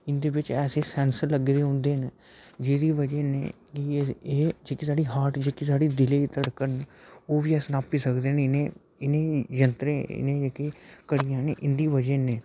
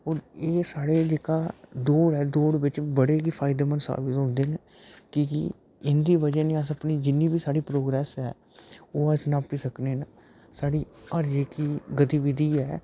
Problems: background sounds at intervals